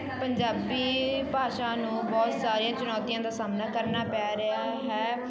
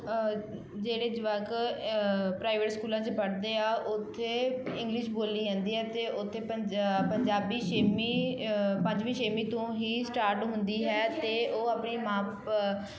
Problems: none marked